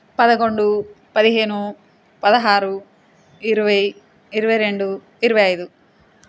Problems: constant background noise